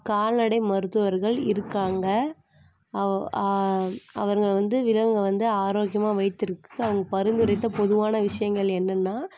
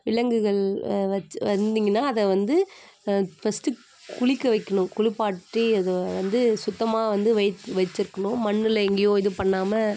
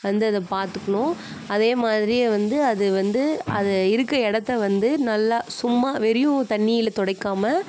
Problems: constant background noise